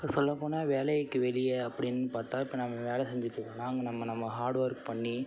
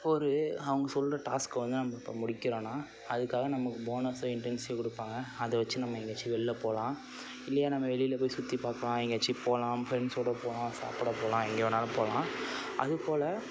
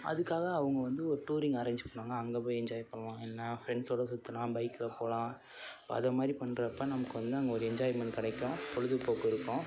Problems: background sounds at intervals